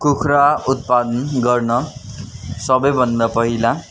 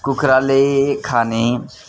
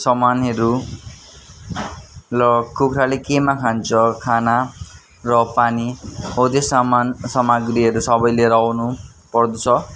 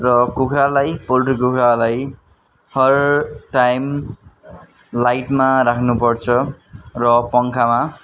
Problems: continuous background conversations